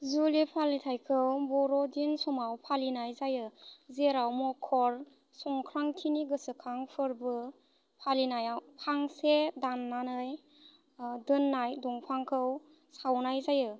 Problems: constant background noise